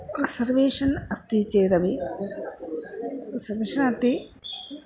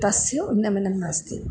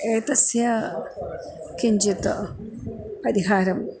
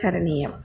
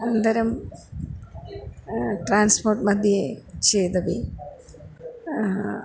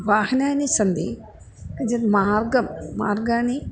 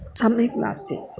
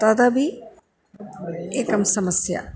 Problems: background sounds at intervals